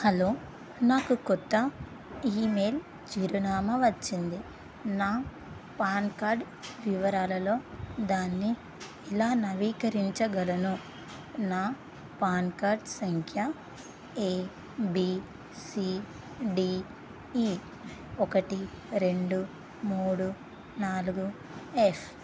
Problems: constant background noise